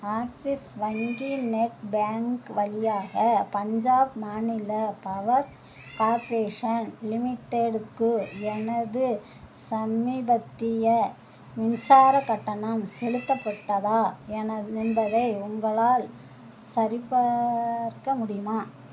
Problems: constant background noise